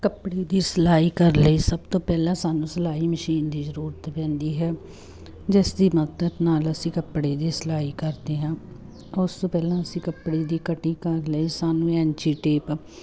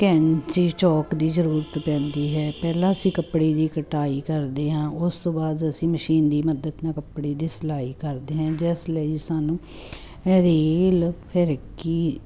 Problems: constant background noise